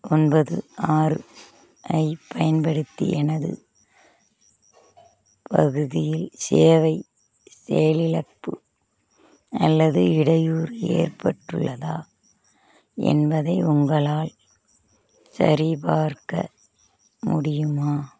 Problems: constant background noise, background conversations at intervals